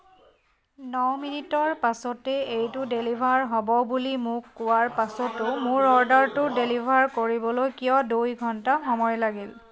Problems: constant background noise